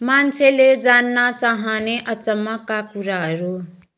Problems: background sounds at intervals